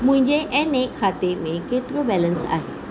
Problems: constant background noise